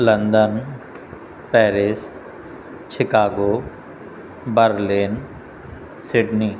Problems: constant background noise, echo